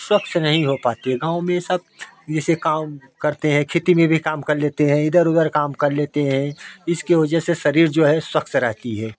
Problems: none marked